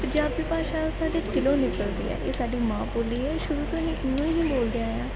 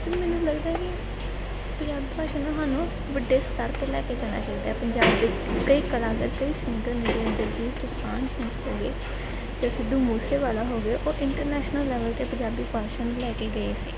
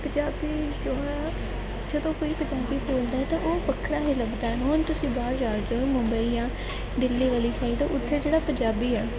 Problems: none marked